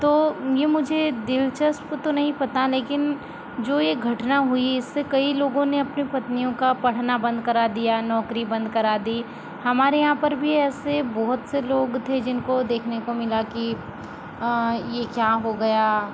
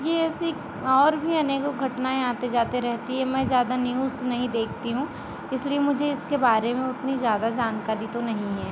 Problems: constant background noise